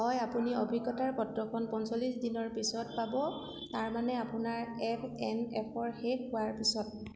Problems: none marked